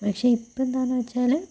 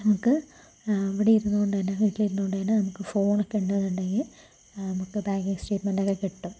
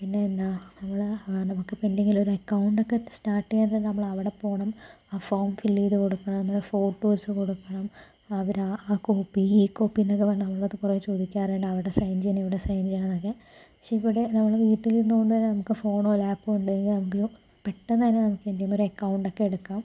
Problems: low volume